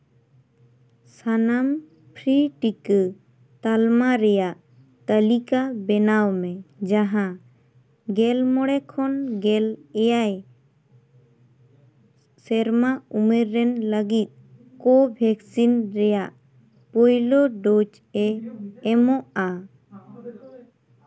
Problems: background conversations at intervals